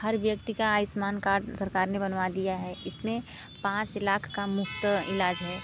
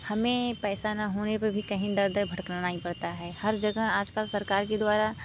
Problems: constant background noise